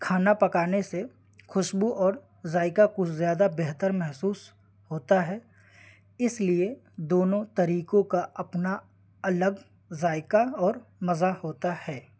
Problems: constant background noise